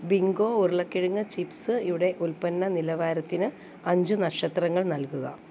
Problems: none marked